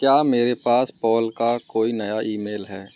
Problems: constant background noise